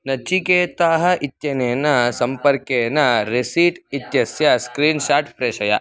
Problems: background conversations at intervals